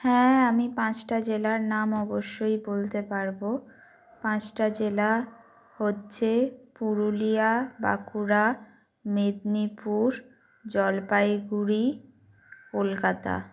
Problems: constant background noise